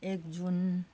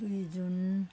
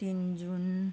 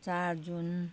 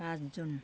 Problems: none marked